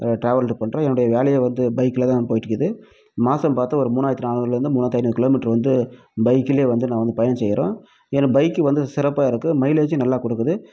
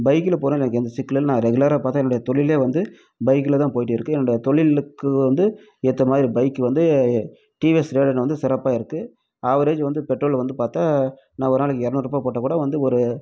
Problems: none marked